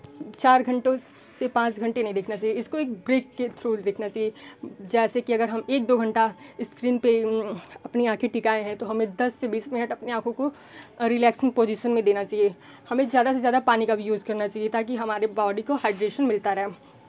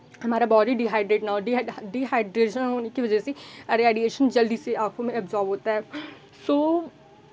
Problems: none marked